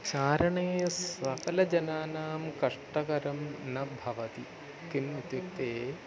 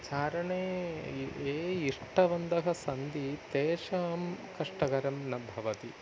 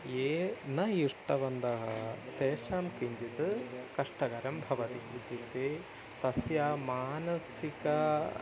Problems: constant background noise, continuous background conversations, low volume